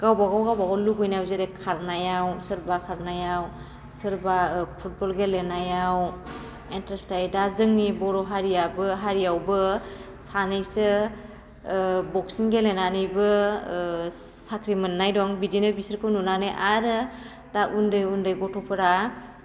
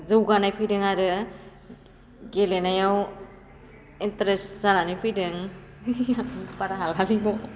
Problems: none marked